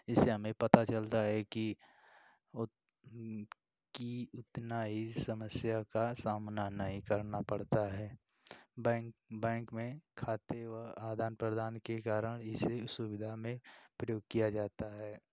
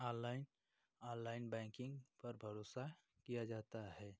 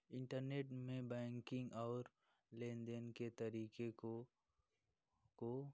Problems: none marked